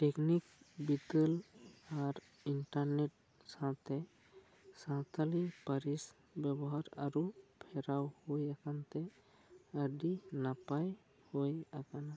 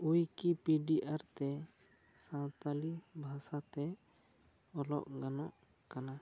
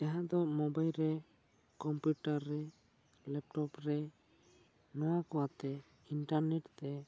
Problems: low volume